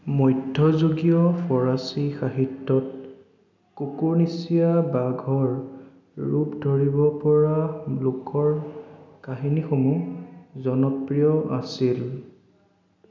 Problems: none marked